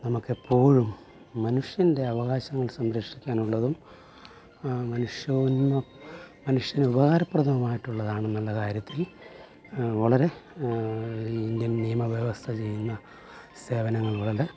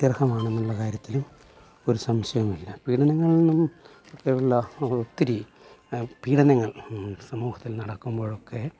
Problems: low volume